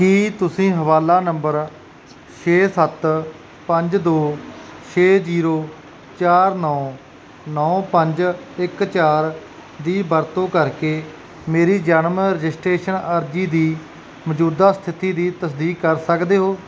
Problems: none marked